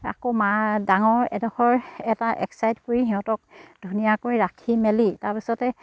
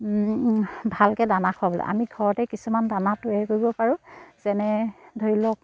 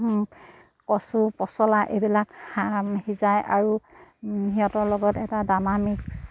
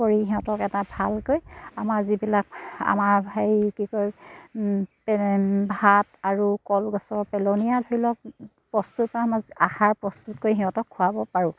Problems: none marked